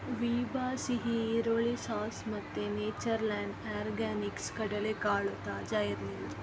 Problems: background sounds at intervals